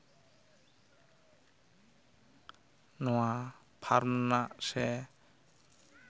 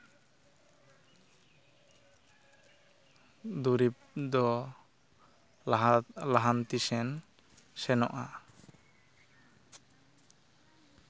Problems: none marked